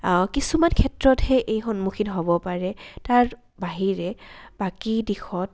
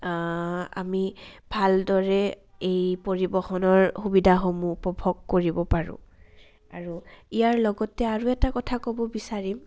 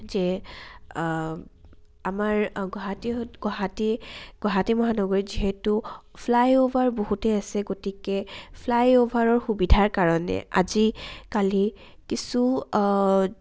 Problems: low volume